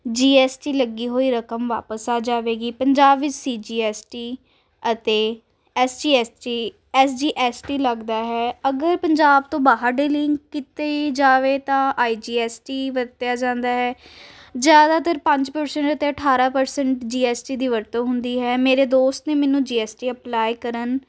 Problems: constant background noise